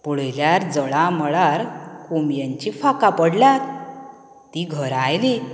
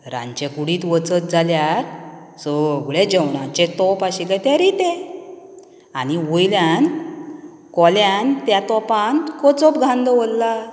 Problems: none marked